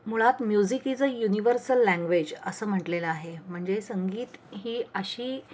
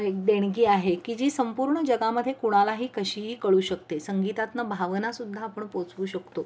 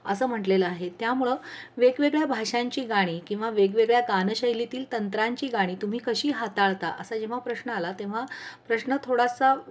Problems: constant background noise